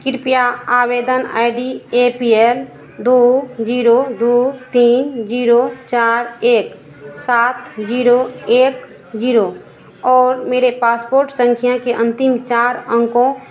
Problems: none marked